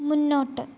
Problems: low volume